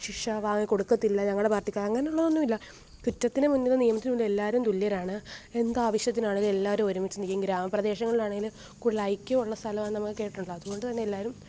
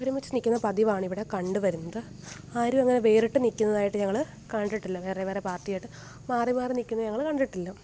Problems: none marked